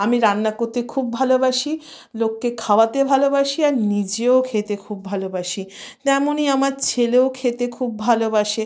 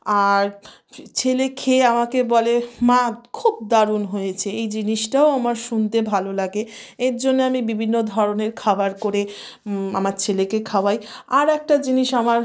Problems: background sounds at intervals